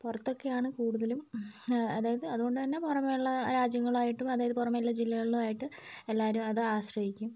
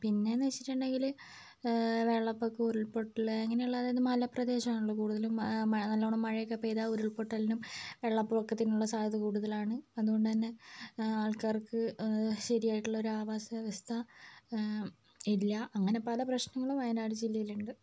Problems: none marked